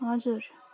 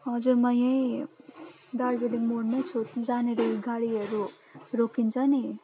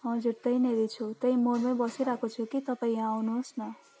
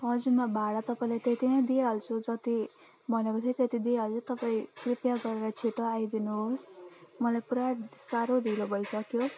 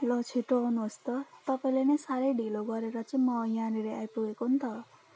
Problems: constant background noise